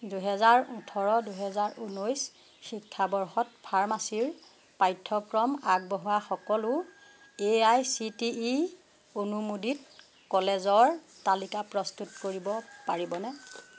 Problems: constant background noise